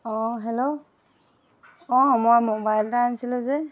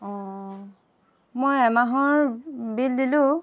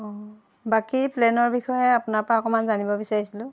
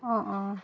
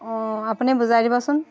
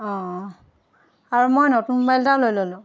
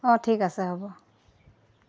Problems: constant background noise